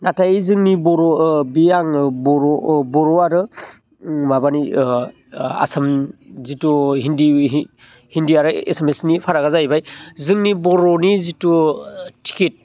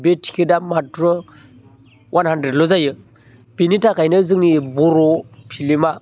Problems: low volume